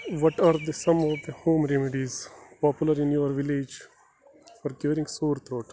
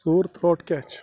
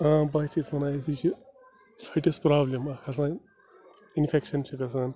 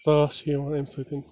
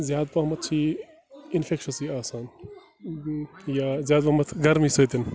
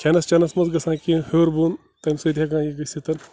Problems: constant background noise, low volume